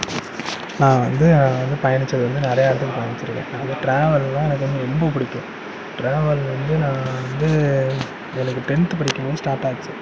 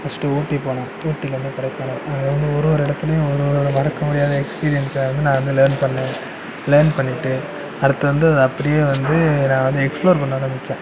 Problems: constant background noise